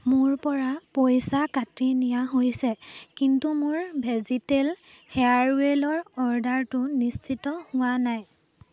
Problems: background conversations at intervals